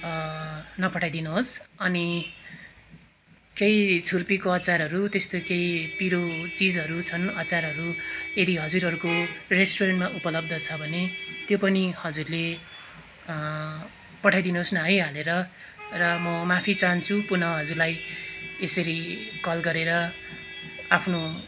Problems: constant background noise, continuous background conversations